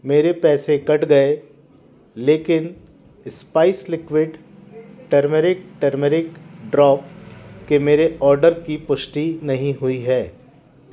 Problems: constant background noise